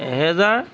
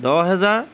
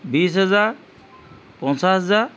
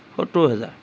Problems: background conversations at intervals